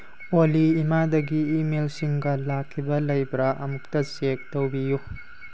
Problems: background sounds at intervals